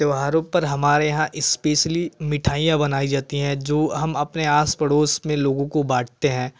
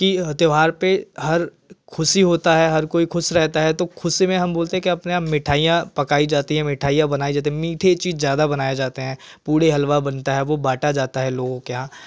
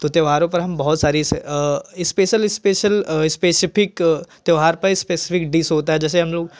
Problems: constant background noise